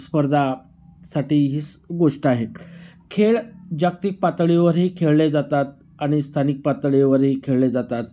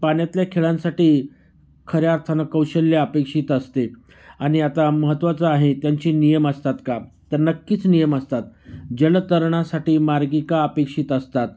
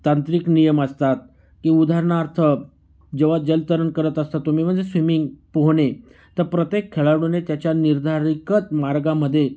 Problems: constant background noise